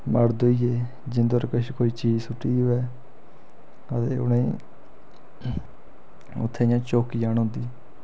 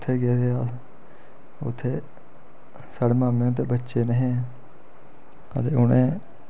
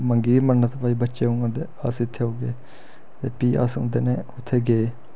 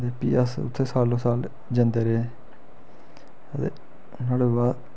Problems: none marked